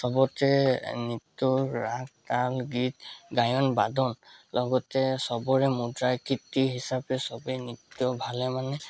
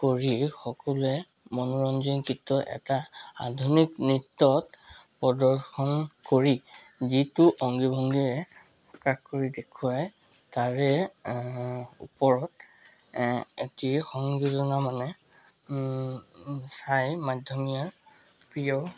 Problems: constant background noise, background conversations at intervals